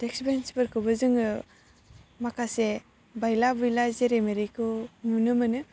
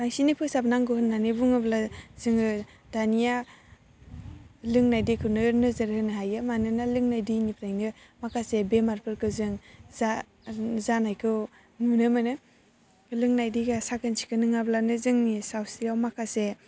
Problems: constant background noise